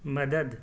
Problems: background sounds at intervals